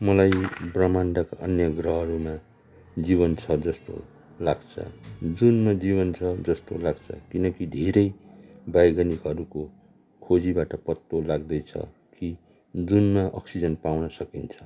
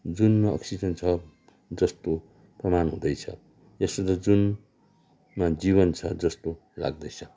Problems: background sounds at intervals